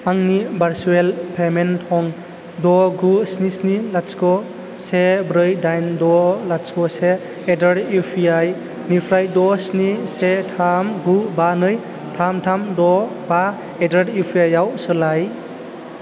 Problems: constant background noise